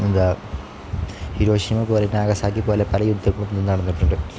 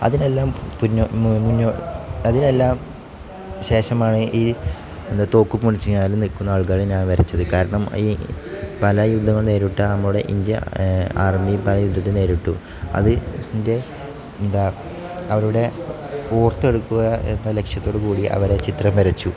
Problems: none marked